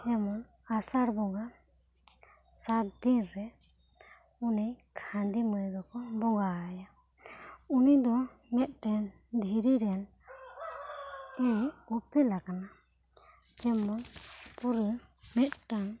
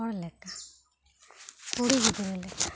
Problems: low volume